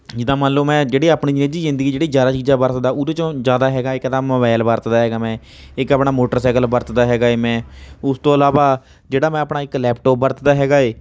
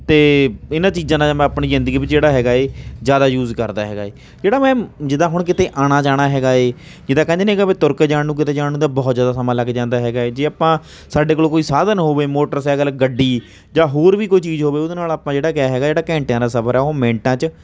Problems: none marked